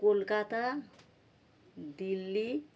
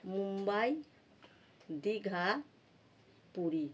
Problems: constant background noise